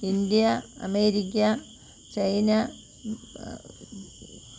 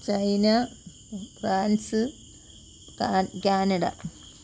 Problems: constant background noise